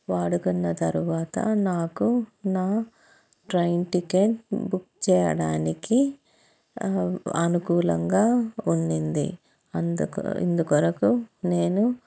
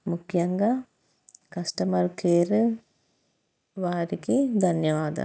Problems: background sounds at intervals